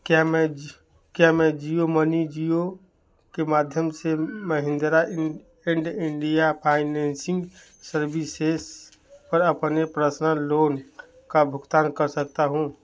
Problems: none marked